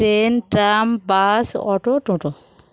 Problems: none marked